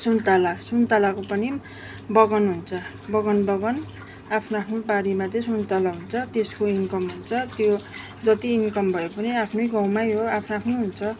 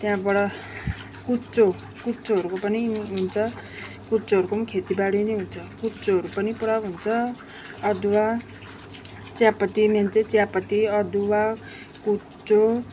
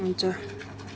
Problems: none marked